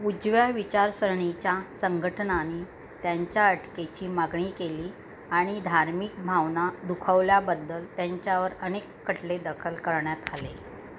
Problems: constant background noise